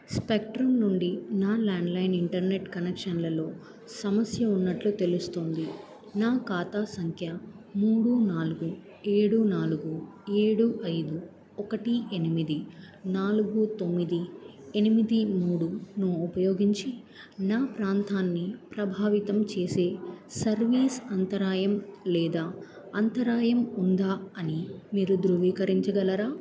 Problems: none marked